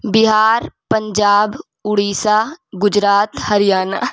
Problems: none marked